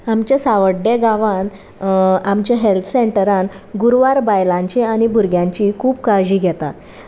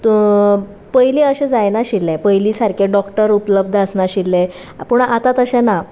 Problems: constant background noise